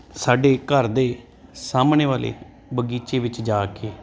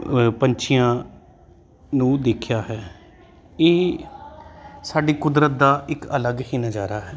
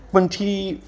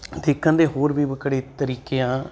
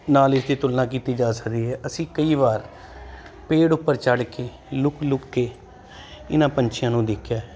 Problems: constant background noise